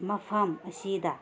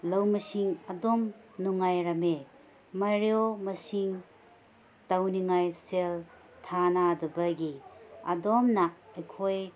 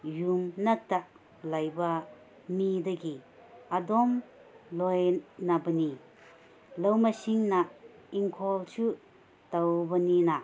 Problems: none marked